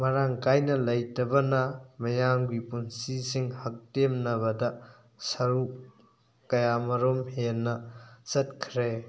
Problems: background sounds at intervals